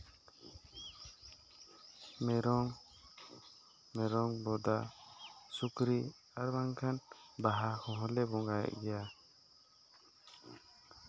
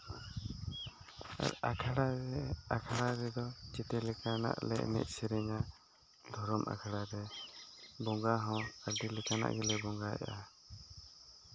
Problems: none marked